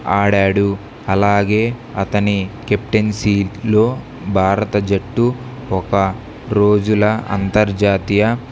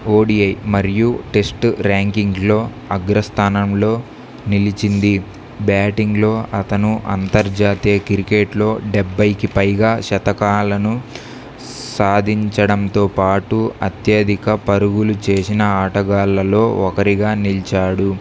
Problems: none marked